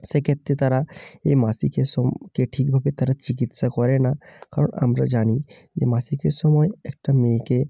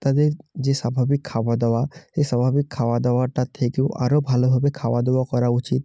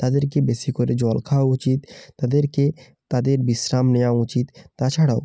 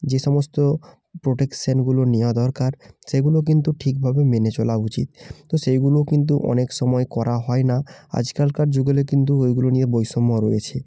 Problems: none marked